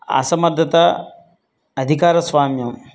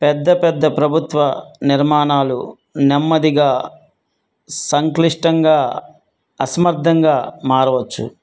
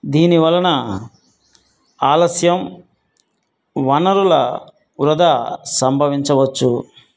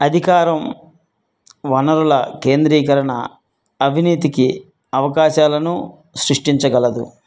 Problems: none marked